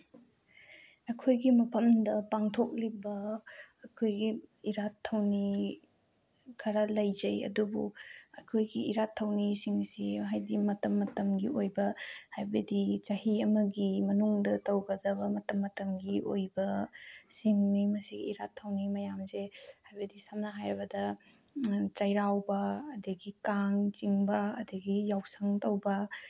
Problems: none marked